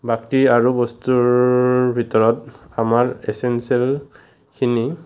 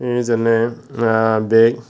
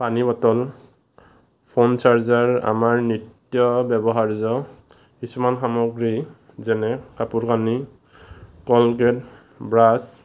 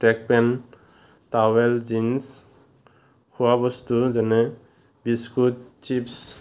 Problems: none marked